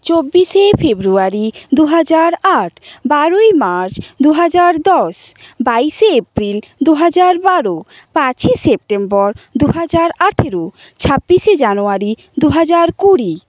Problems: constant background noise